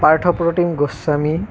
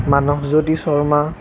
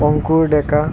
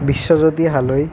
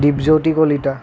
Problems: constant background noise